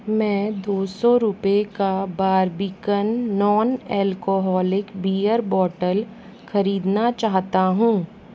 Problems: none marked